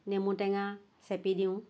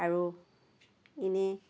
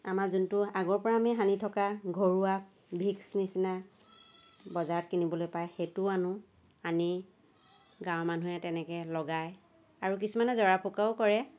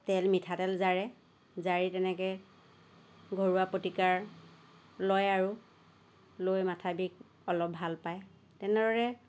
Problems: none marked